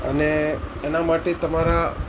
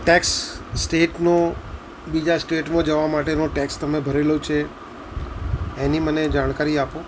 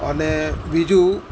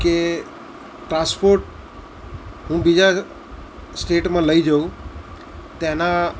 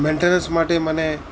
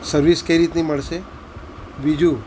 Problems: none marked